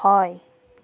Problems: constant background noise